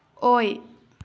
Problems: none marked